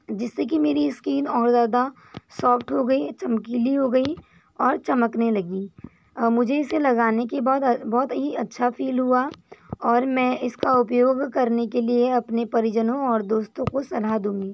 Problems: constant background noise